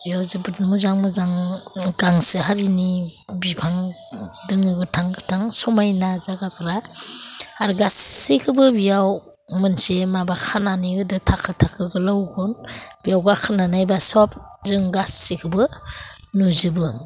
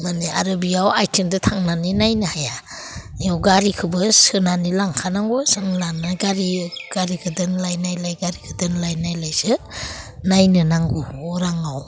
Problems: constant background noise